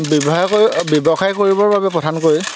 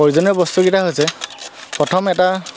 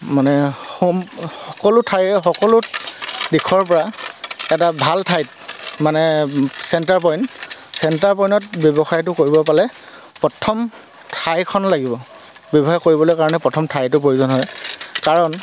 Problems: none marked